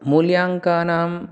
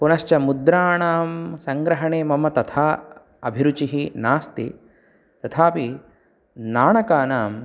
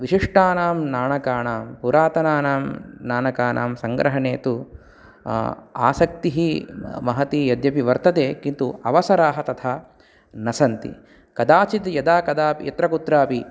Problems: none marked